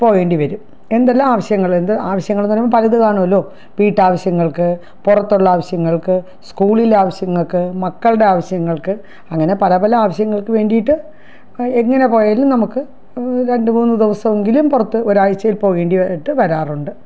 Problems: none marked